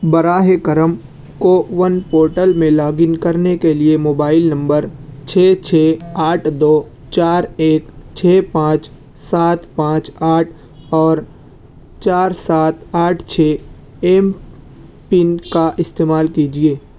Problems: constant background noise